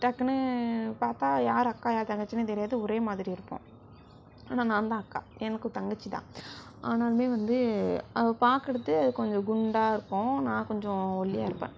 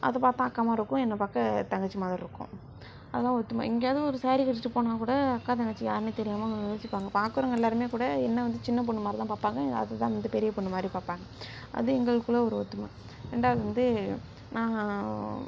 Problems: background sounds at intervals